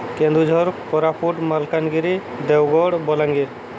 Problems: constant background noise